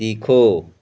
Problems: none marked